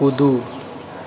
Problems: background sounds at intervals